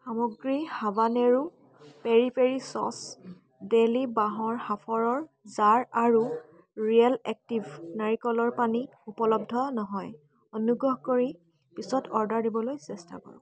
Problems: constant background noise, background conversations at intervals